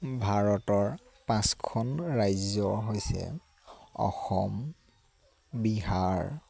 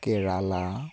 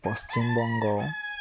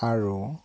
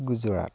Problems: constant background noise